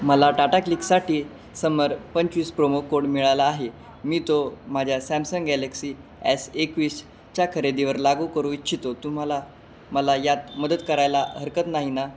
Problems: constant background noise, background conversations at intervals